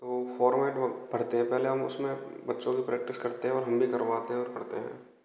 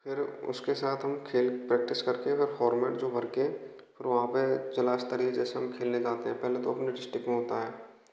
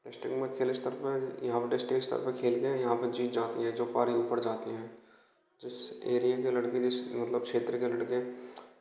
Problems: constant background noise, echo